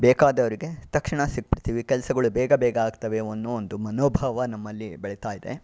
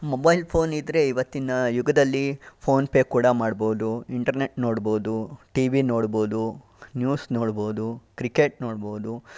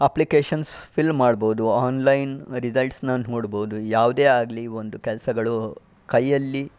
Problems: background sounds at intervals